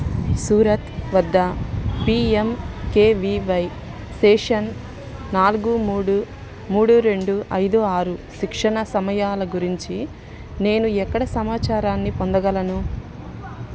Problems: constant background noise